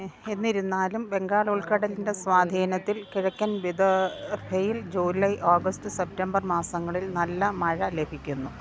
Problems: none marked